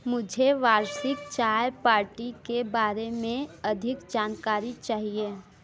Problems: constant background noise